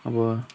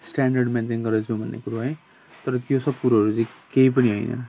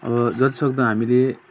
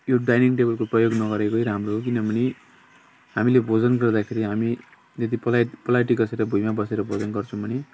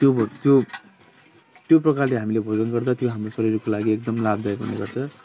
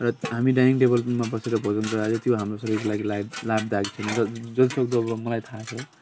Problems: constant background noise, continuous background conversations